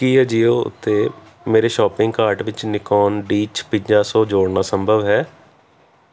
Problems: none marked